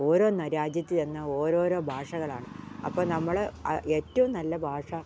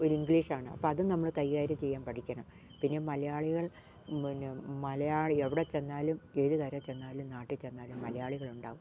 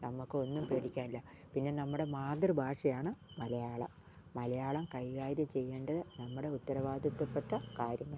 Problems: none marked